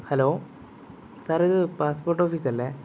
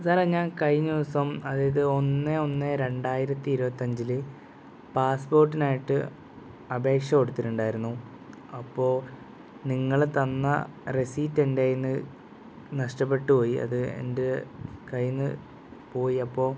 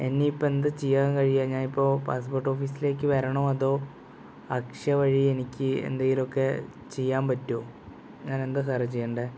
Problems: background sounds at intervals